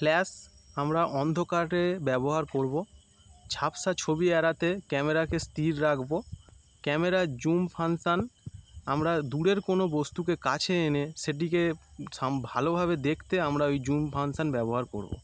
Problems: none marked